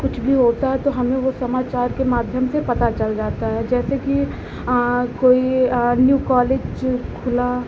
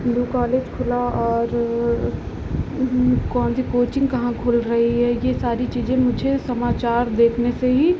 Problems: none marked